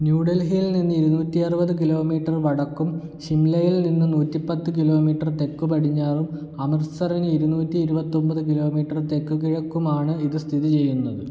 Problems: none marked